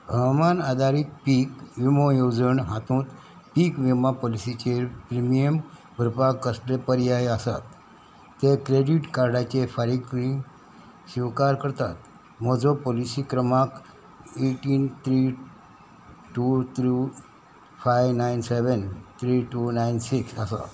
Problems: none marked